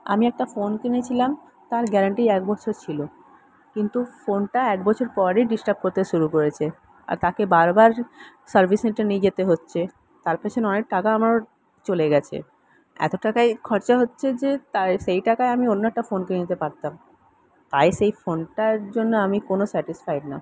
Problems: constant background noise